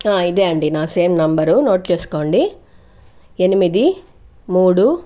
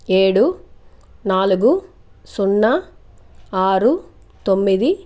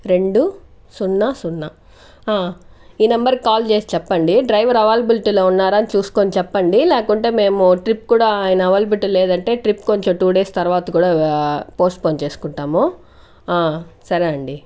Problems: none marked